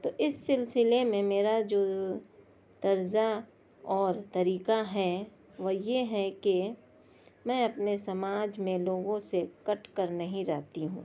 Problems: none marked